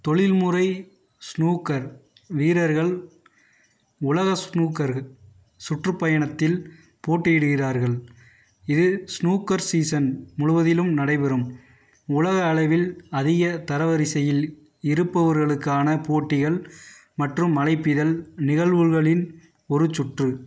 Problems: none marked